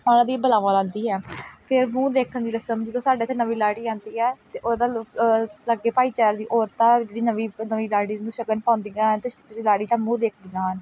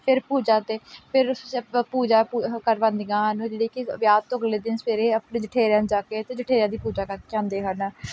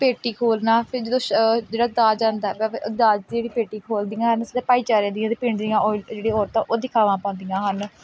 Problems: background sounds at intervals